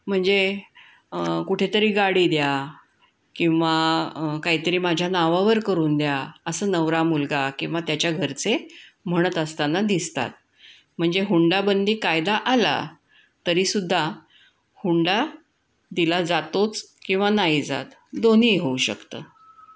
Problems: background sounds at intervals